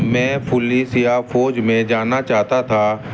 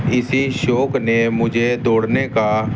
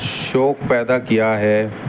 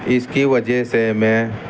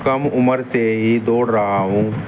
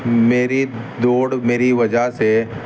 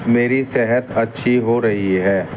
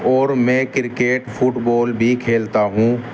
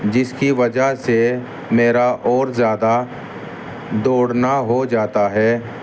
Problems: constant background noise